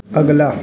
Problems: background sounds at intervals